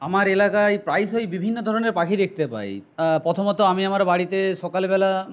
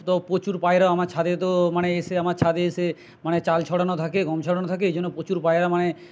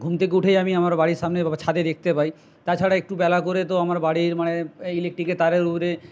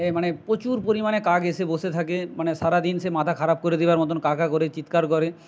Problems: none marked